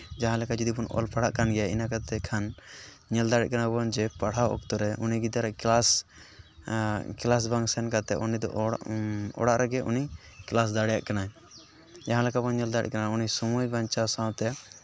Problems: none marked